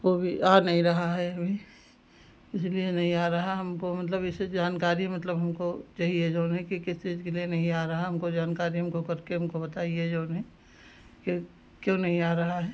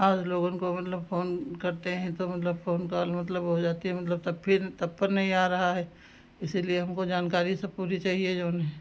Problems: background sounds at intervals